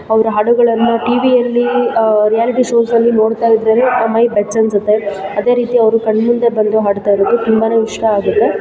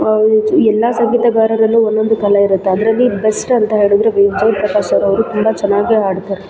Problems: background sounds at intervals